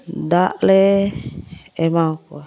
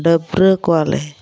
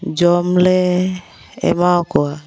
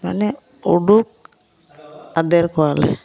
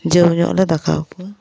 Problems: background sounds at intervals, background conversations at intervals